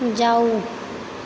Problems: constant background noise